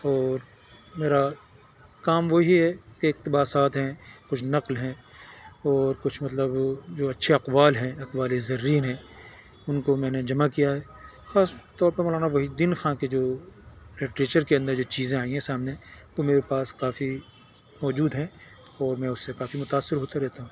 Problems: constant background noise